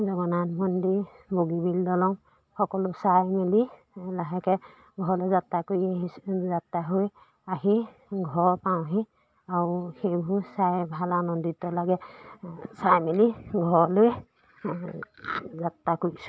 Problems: background sounds at intervals